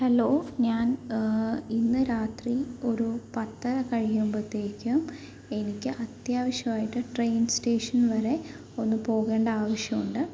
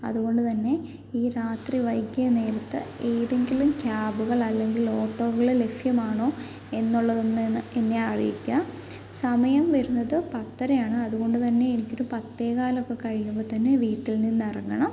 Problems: background sounds at intervals, low volume